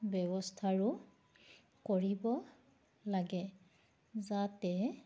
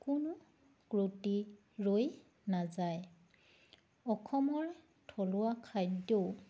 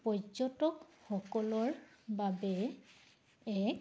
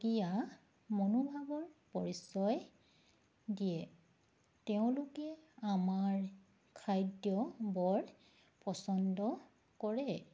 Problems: background sounds at intervals